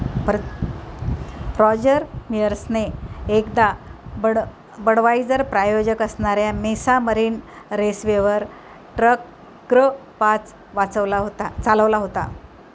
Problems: constant background noise